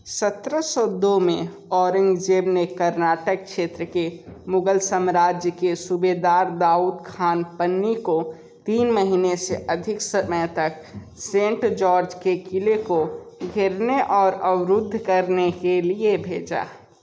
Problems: constant background noise